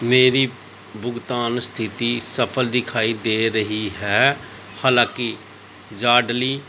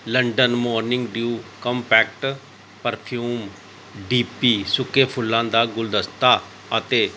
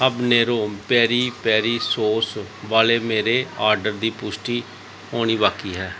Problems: background sounds at intervals